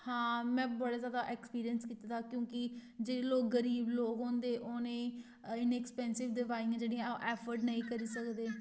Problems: none marked